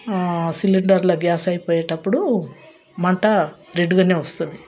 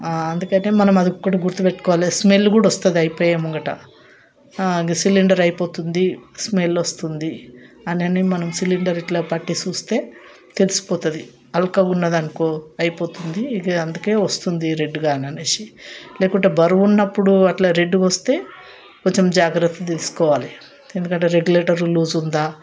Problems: none marked